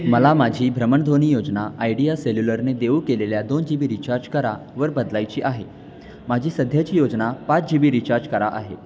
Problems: constant background noise, background conversations at intervals